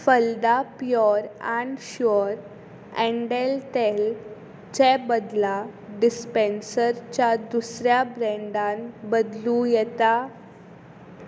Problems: constant background noise